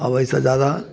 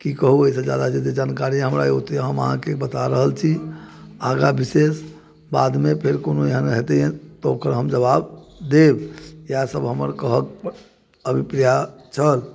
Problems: none marked